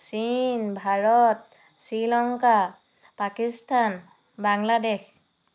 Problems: none marked